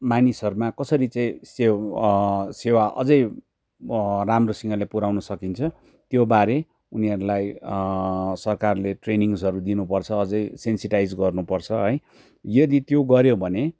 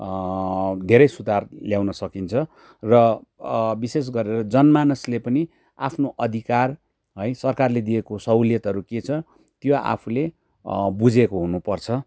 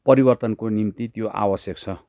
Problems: background sounds at intervals